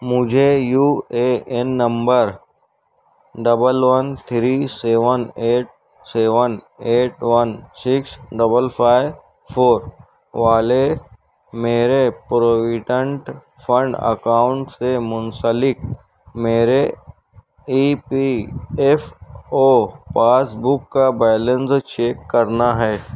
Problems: background sounds at intervals